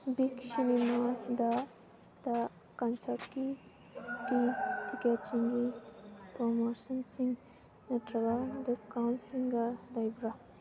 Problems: background sounds at intervals, background conversations at intervals